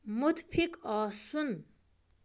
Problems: constant background noise